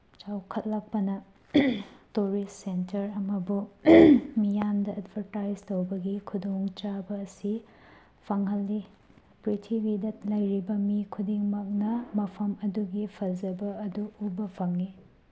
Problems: none marked